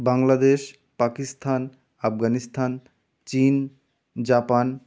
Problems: none marked